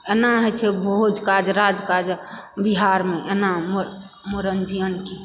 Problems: background sounds at intervals